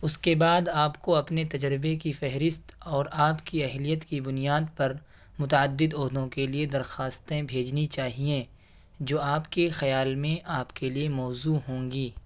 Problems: background sounds at intervals